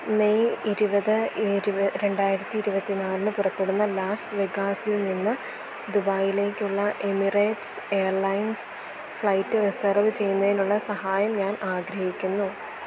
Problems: constant background noise